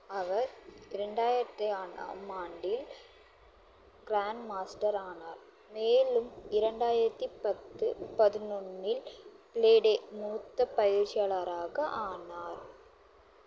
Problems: constant background noise